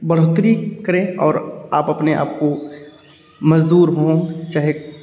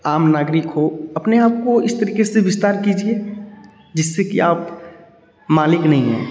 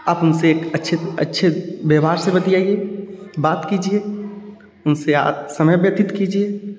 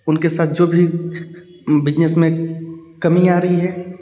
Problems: none marked